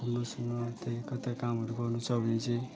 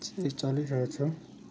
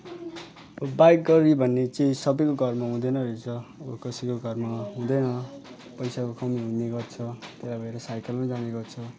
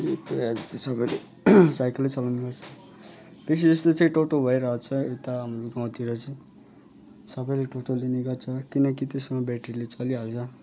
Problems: none marked